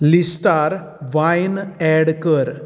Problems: none marked